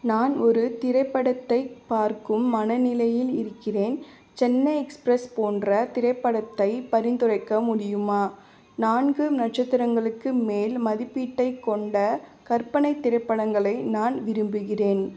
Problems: constant background noise, continuous background conversations